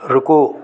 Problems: none marked